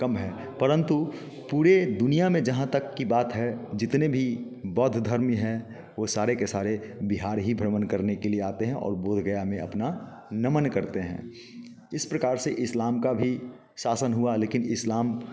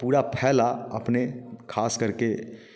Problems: constant background noise, continuous background conversations